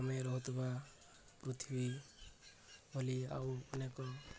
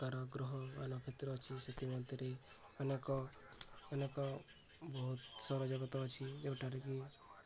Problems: none marked